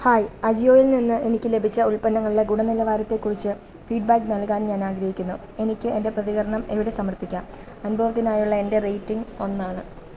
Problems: background sounds at intervals